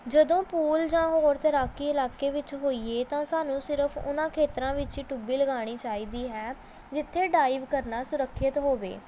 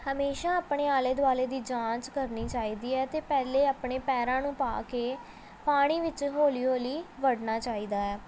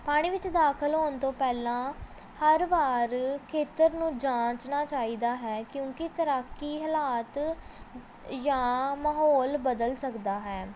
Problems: background sounds at intervals, background conversations at intervals